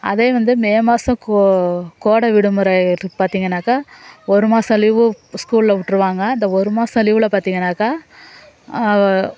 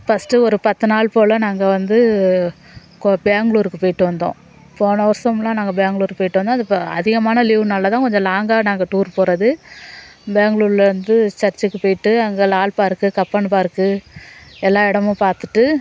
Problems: background sounds at intervals, background conversations at intervals